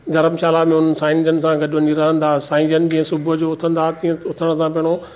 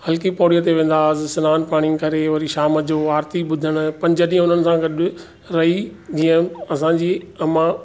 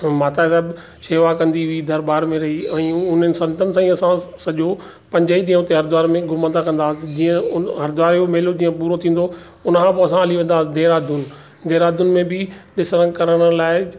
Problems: background sounds at intervals